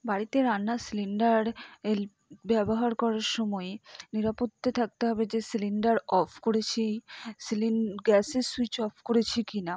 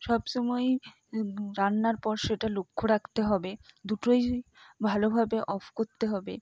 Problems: none marked